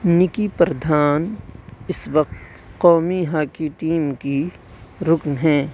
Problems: none marked